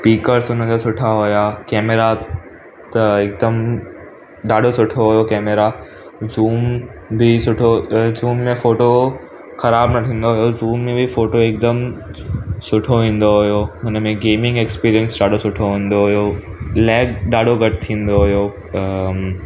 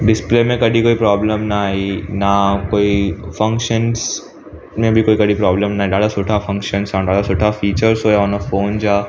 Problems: constant background noise